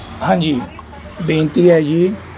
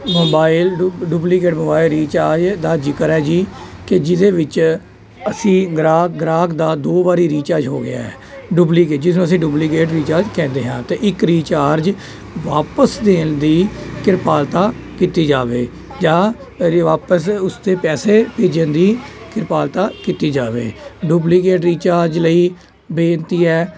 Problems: constant background noise, continuous background conversations